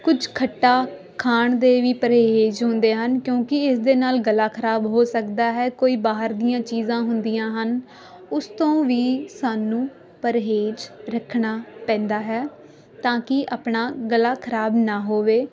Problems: constant background noise